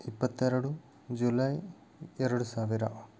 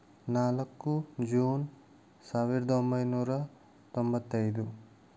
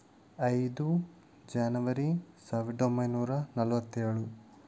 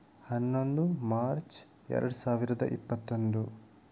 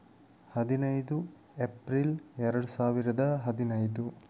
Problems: none marked